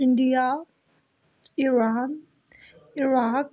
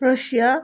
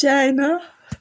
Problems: background conversations at intervals